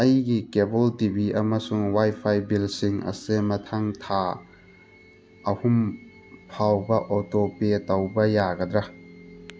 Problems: constant background noise